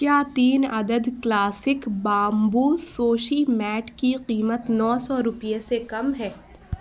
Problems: background sounds at intervals